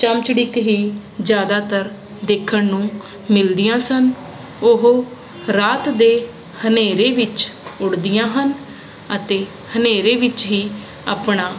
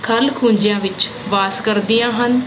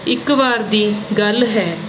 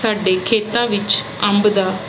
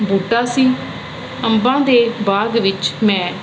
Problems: constant background noise